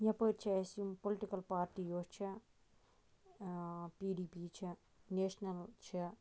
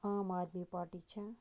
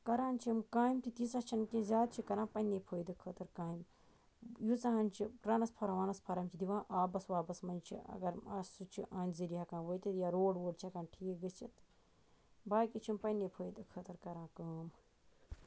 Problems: none marked